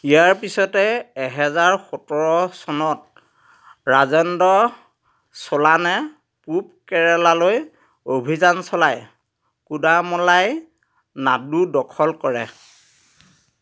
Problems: none marked